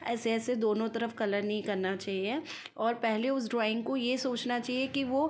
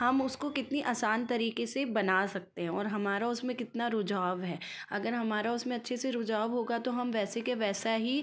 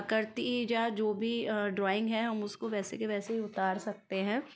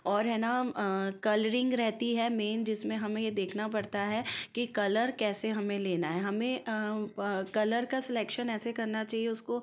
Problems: constant background noise, continuous background conversations